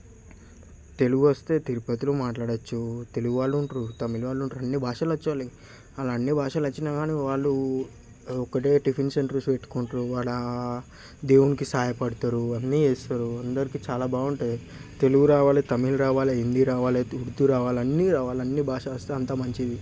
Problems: constant background noise